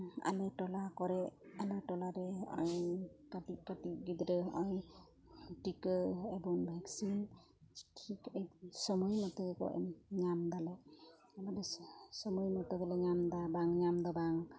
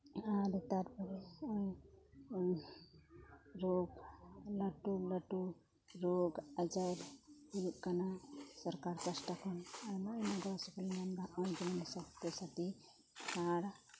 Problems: low volume